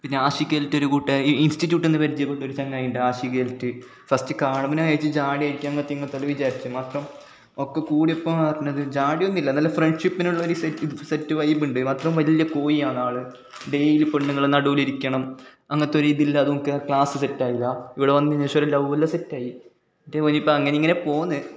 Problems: background sounds at intervals